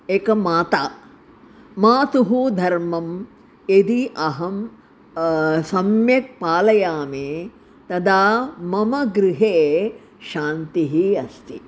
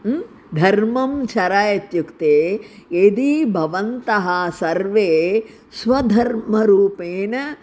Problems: none marked